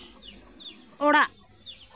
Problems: constant background noise